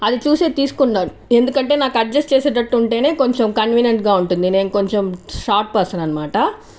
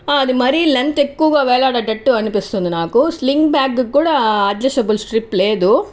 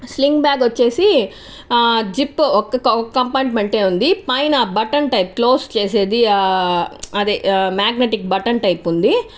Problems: none marked